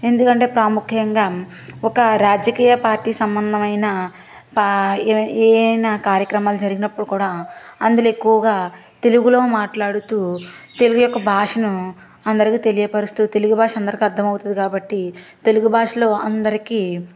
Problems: background sounds at intervals